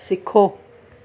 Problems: constant background noise